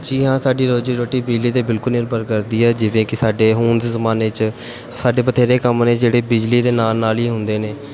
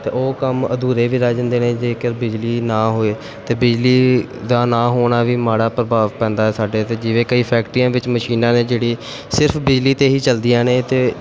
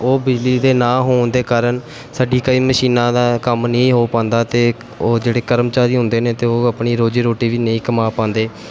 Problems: background sounds at intervals